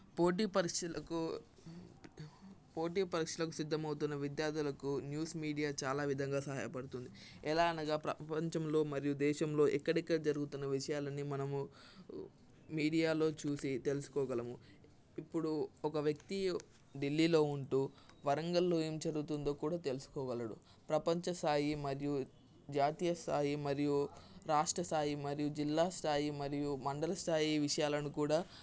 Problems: constant background noise